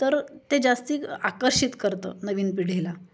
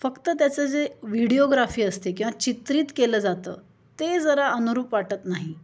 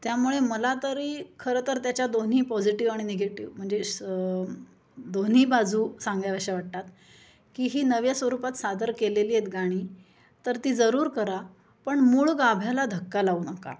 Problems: constant background noise, continuous background conversations